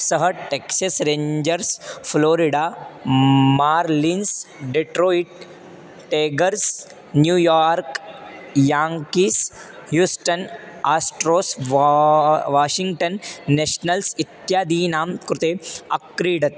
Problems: constant background noise